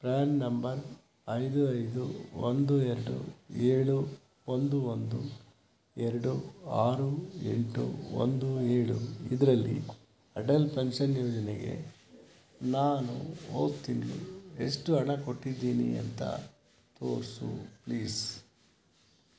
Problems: background sounds at intervals